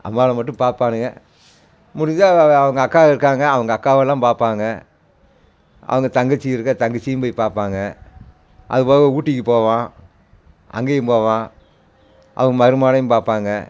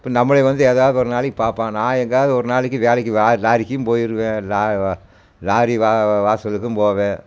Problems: constant background noise